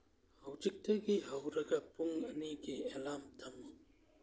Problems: low volume